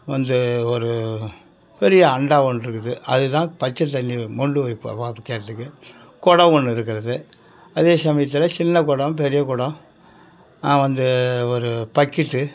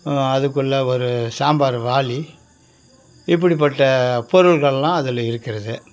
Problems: background sounds at intervals, background conversations at intervals